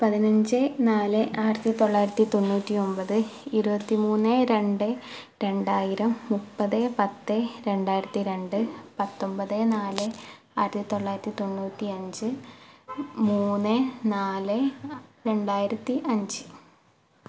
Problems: background sounds at intervals